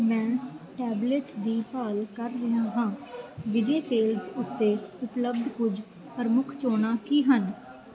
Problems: continuous background conversations